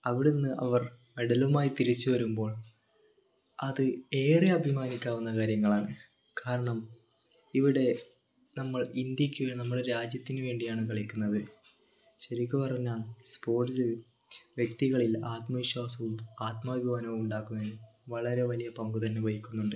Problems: none marked